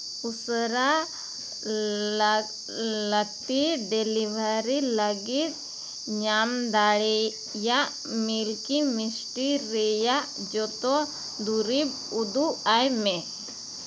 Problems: constant background noise